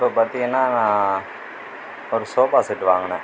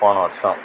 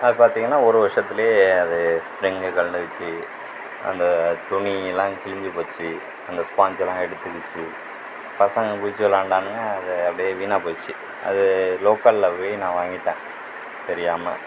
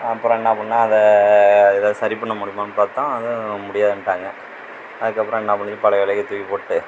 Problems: none marked